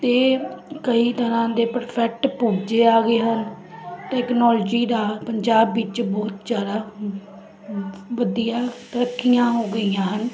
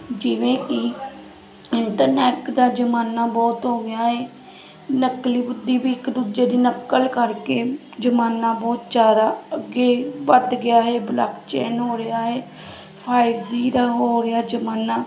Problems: constant background noise